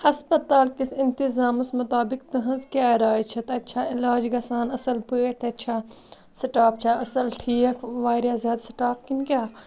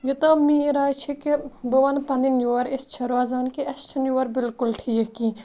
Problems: none marked